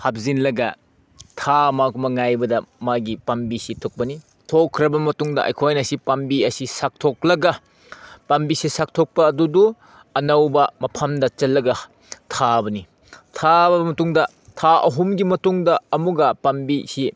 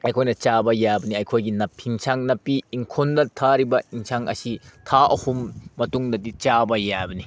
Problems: none marked